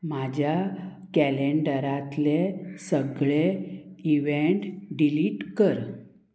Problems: constant background noise